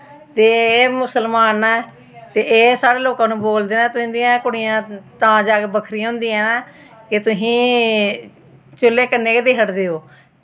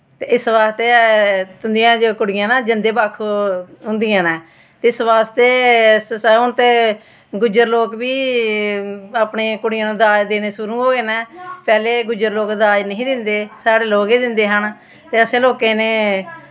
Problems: constant background noise